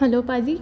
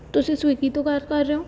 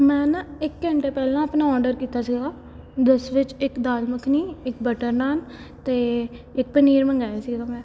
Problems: background sounds at intervals